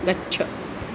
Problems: constant background noise